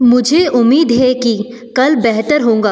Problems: background sounds at intervals